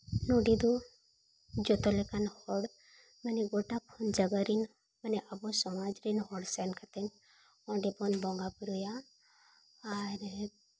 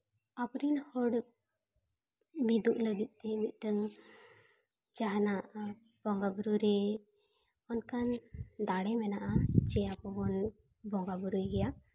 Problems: background sounds at intervals